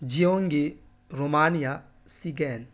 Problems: none marked